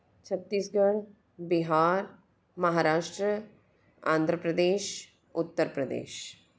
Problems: none marked